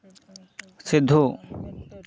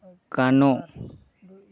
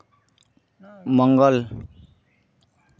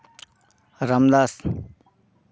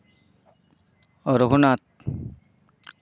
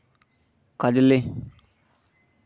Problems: background conversations at intervals